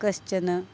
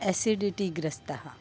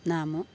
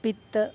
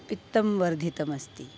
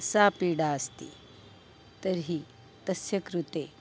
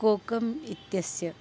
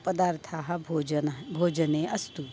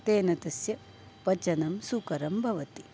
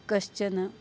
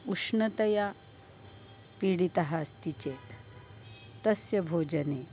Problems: constant background noise